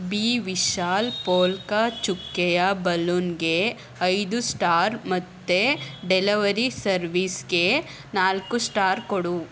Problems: background sounds at intervals